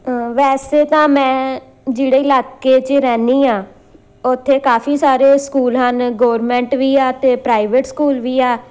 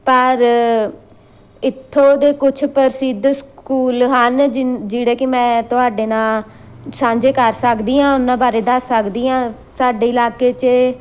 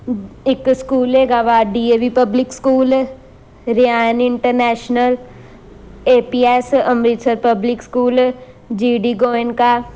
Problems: constant background noise